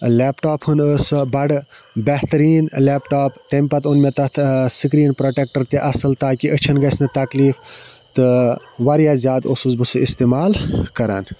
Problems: constant background noise